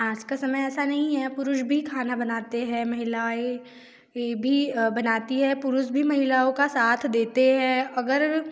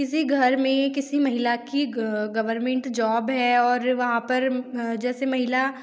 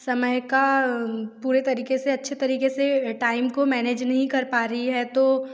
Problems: none marked